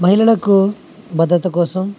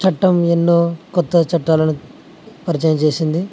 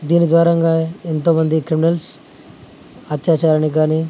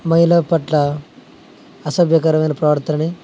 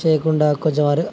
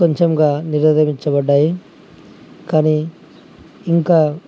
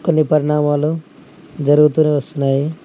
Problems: constant background noise